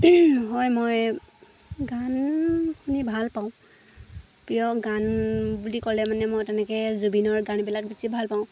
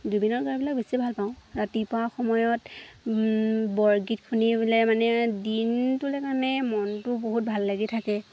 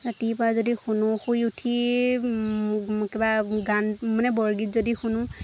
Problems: constant background noise, background conversations at intervals